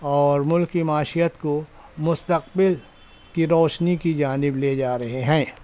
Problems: constant background noise